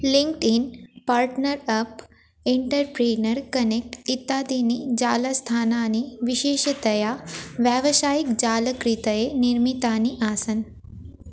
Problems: constant background noise, continuous background conversations